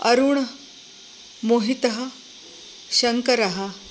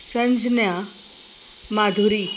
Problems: constant background noise